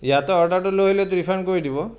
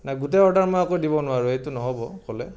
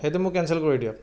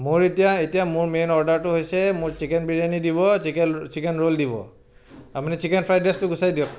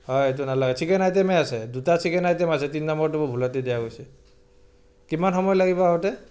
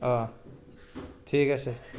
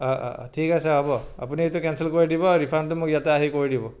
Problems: none marked